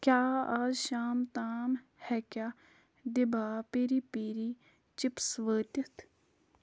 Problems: background sounds at intervals